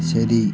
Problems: background sounds at intervals